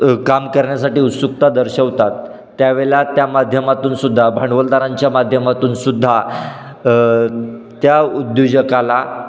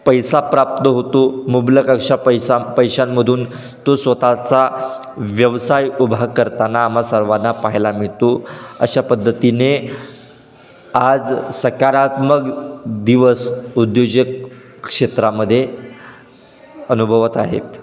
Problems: none marked